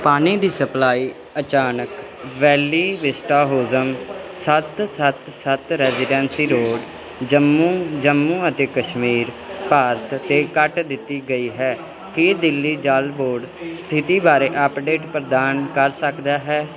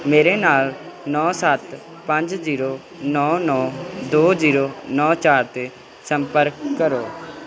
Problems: none marked